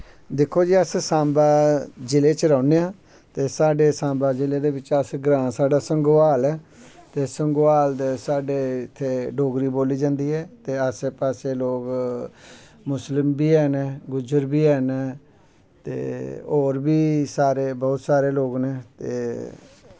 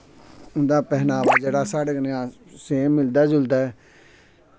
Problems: background sounds at intervals